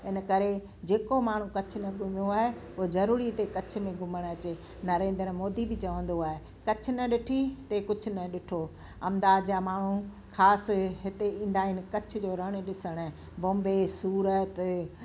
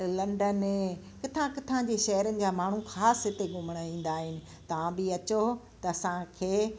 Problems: constant background noise